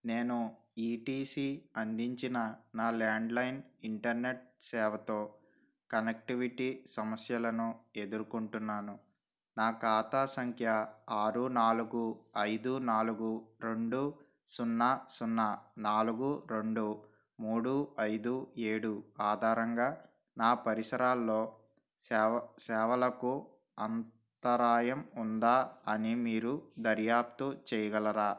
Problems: none marked